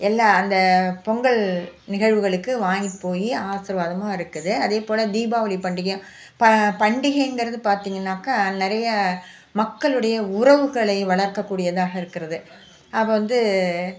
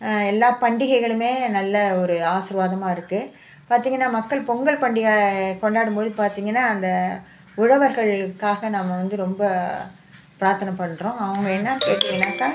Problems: background sounds at intervals